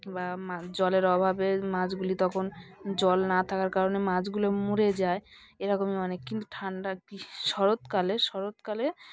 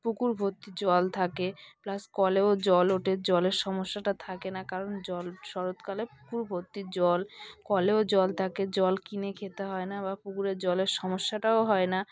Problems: background sounds at intervals, continuous background conversations